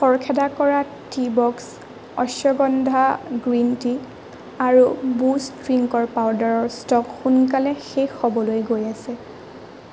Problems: constant background noise